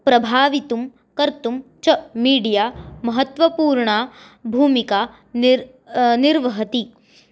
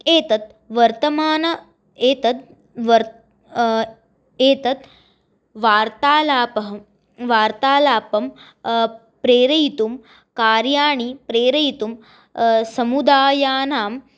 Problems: none marked